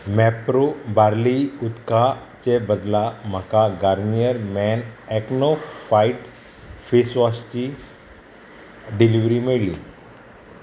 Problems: constant background noise